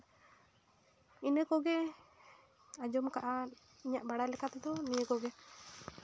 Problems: none marked